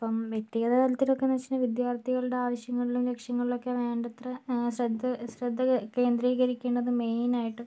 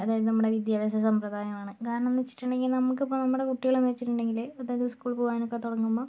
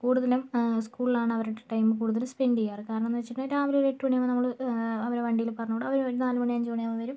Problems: none marked